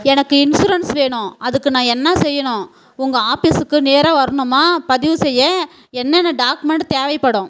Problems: background sounds at intervals